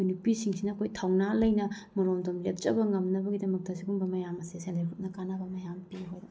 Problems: background sounds at intervals